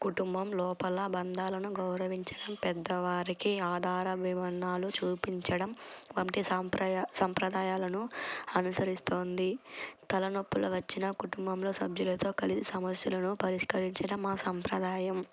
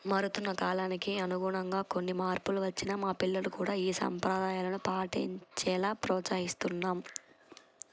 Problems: none marked